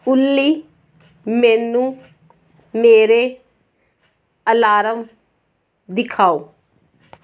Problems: background sounds at intervals